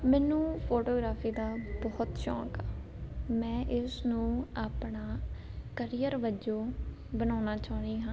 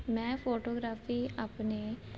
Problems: none marked